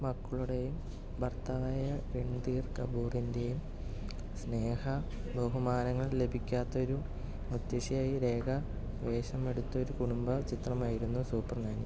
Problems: low volume